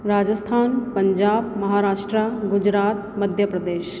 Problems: constant background noise, echo